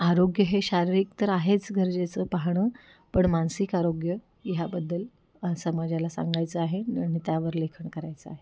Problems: background sounds at intervals